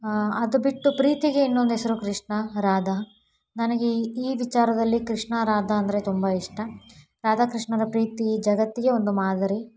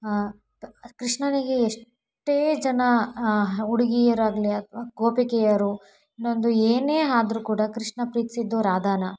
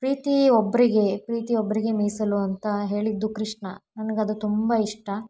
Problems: none marked